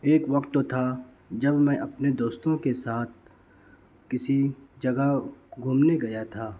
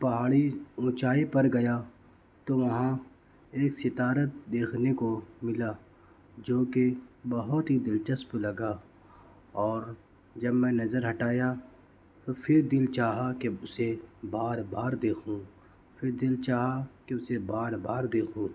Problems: none marked